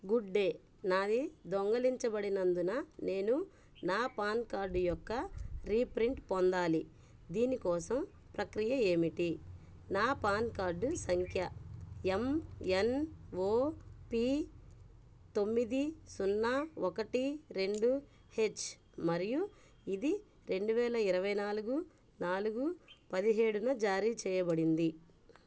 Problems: none marked